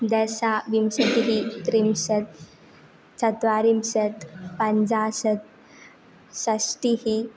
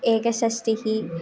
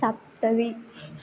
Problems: background sounds at intervals